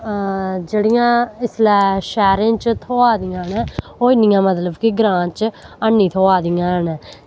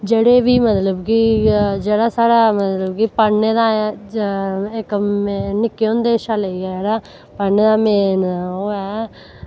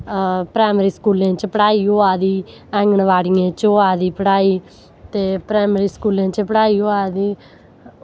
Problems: none marked